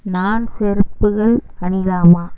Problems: constant background noise